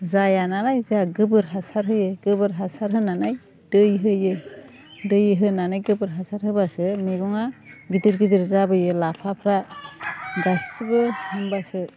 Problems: none marked